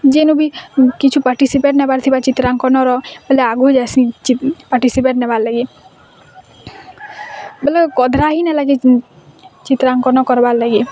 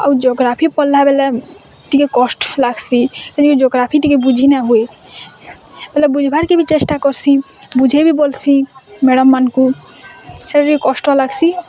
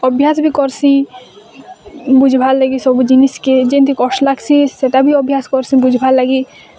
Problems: constant background noise, continuous background conversations